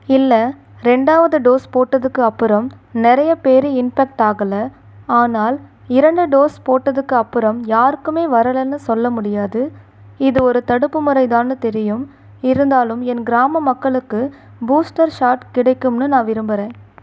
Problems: none marked